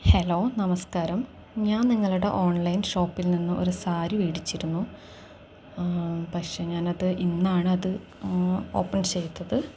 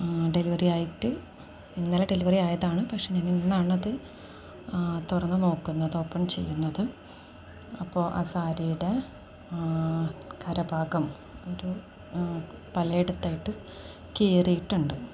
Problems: none marked